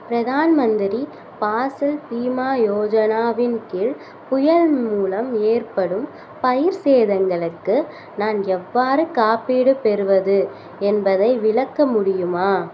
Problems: none marked